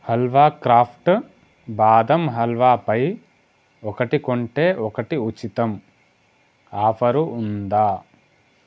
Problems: constant background noise